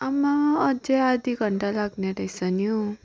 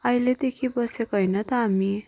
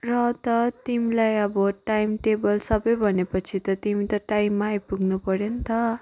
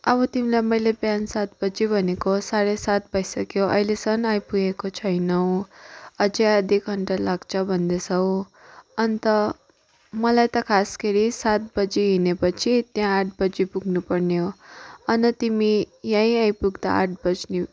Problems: background sounds at intervals